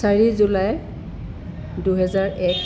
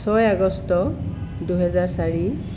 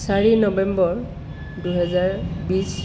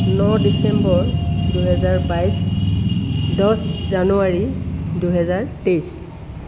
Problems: constant background noise